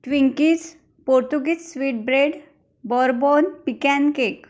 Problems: background sounds at intervals